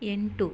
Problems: none marked